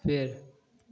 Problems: none marked